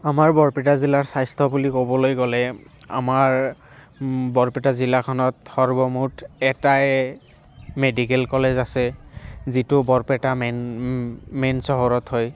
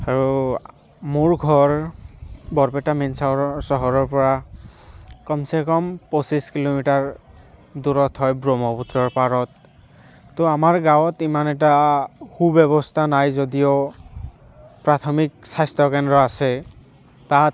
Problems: constant background noise